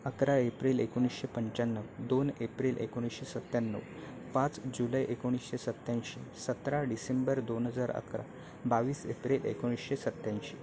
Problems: none marked